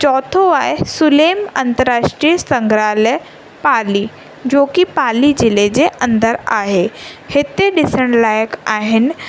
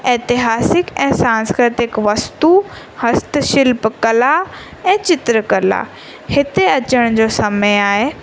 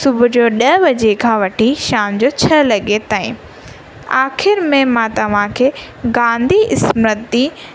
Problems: constant background noise